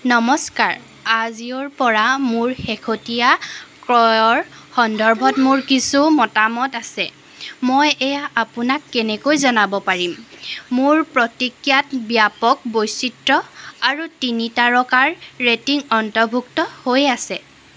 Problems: background sounds at intervals